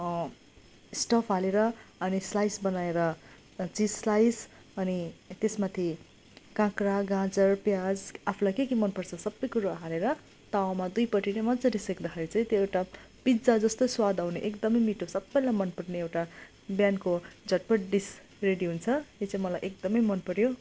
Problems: continuous background conversations